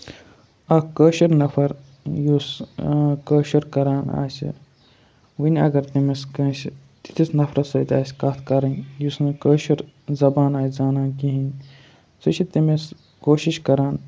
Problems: background sounds at intervals